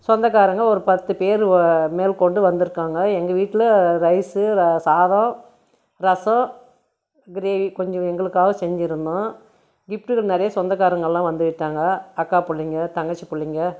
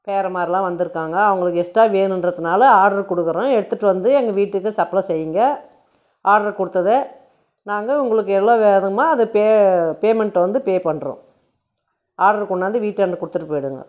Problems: none marked